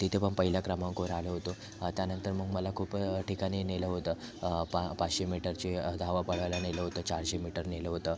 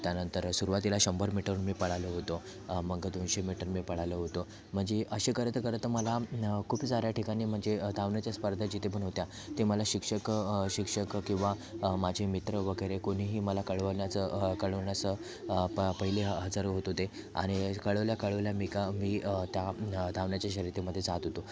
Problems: constant background noise, background conversations at intervals